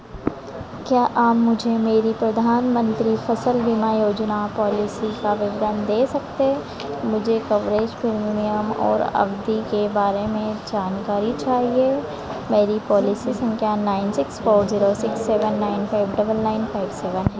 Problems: none marked